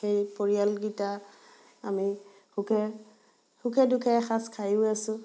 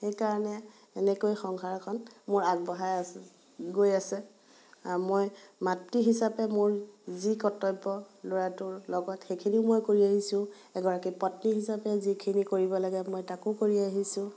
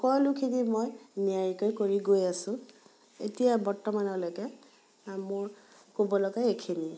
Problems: background sounds at intervals, background conversations at intervals